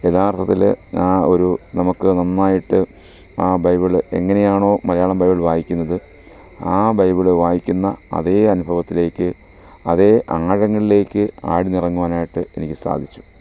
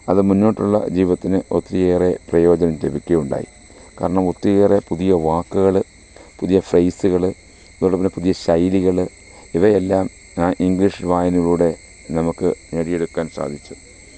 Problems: constant background noise